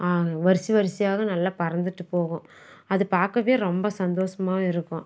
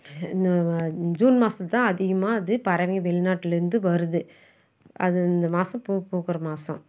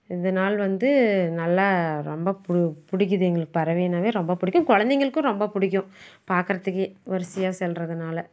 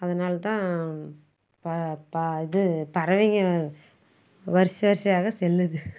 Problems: none marked